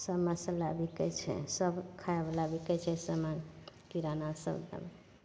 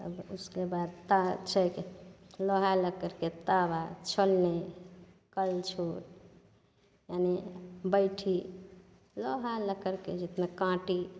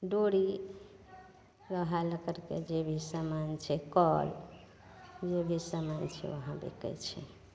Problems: none marked